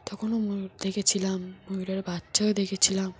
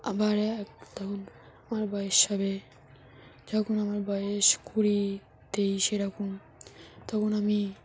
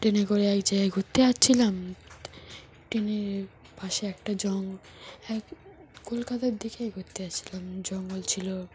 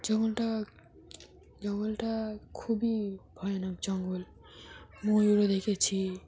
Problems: none marked